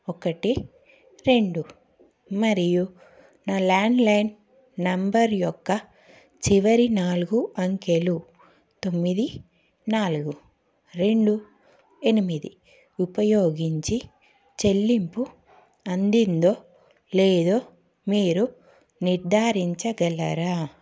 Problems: none marked